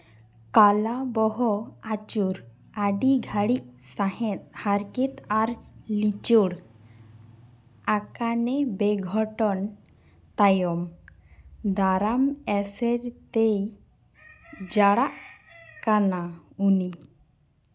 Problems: constant background noise